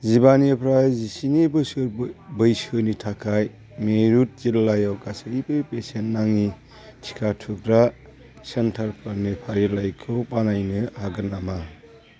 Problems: constant background noise